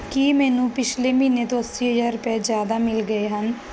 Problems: background sounds at intervals